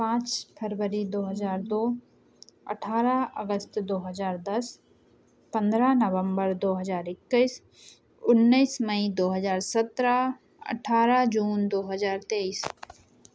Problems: background sounds at intervals